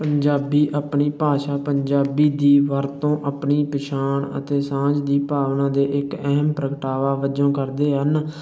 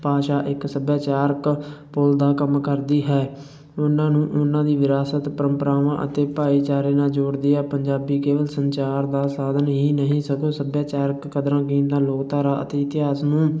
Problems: none marked